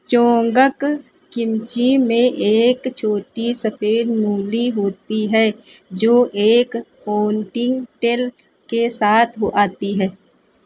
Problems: none marked